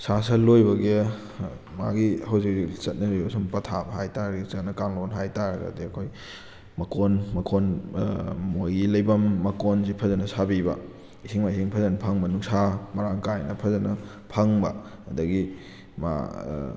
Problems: none marked